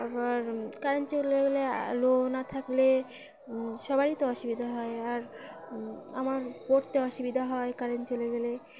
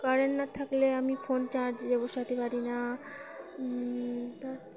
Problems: constant background noise, continuous background conversations